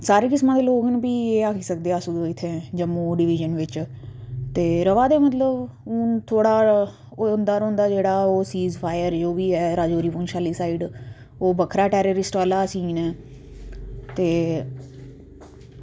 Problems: low volume